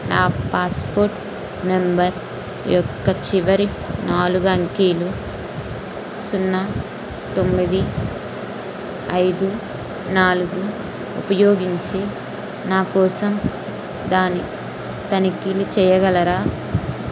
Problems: constant background noise